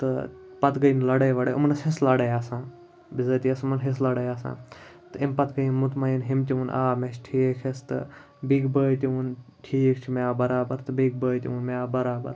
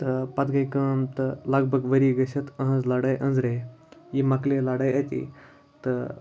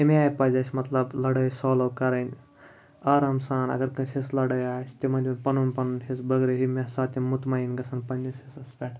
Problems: none marked